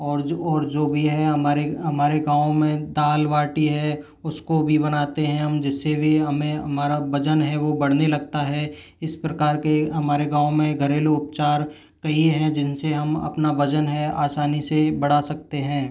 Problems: none marked